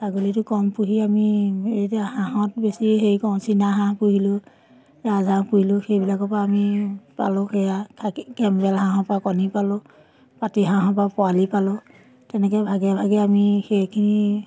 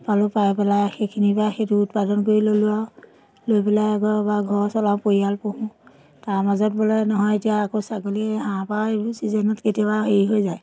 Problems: constant background noise, background conversations at intervals